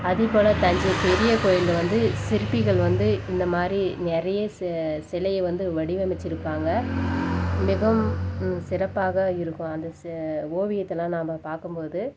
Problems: background sounds at intervals